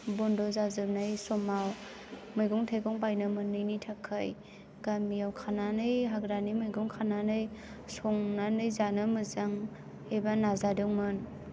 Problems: constant background noise